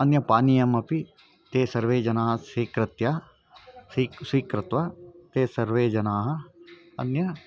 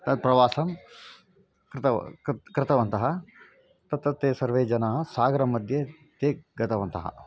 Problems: none marked